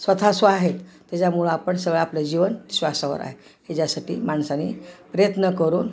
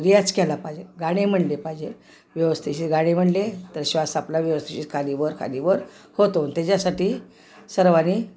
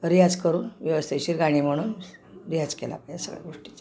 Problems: background sounds at intervals